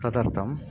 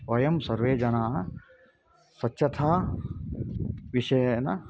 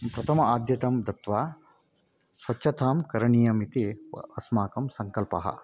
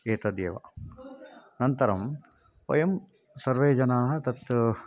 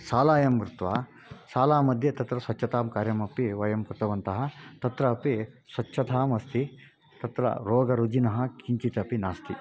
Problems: background sounds at intervals